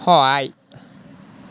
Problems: none marked